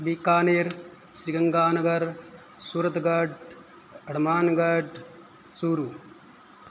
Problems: none marked